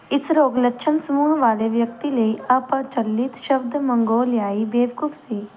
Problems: background sounds at intervals